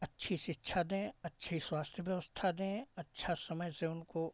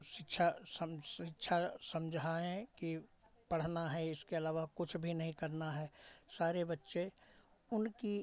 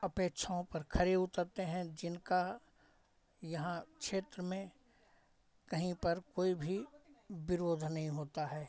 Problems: none marked